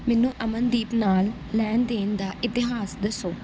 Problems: background sounds at intervals